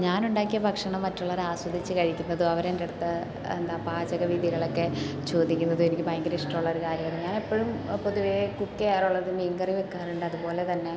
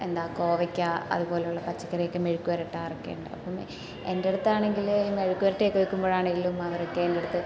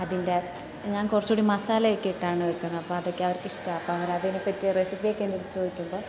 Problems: constant background noise